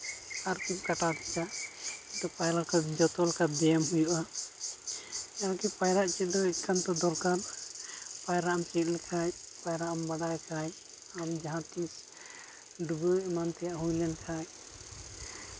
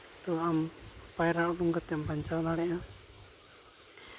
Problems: constant background noise